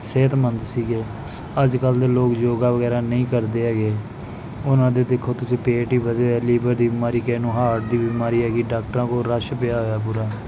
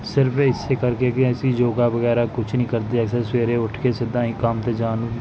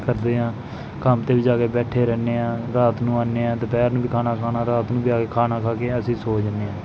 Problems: none marked